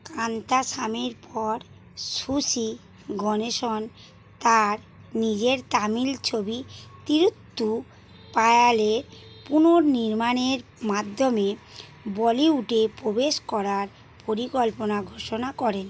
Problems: constant background noise